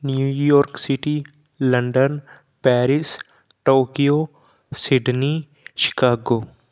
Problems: none marked